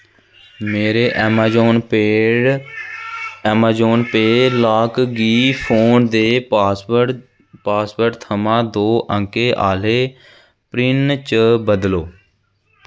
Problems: constant background noise